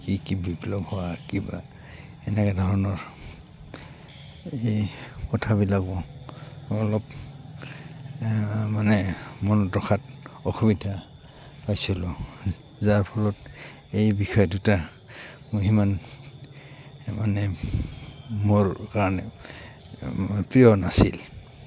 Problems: constant background noise